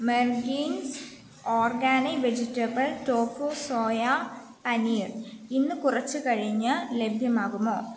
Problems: constant background noise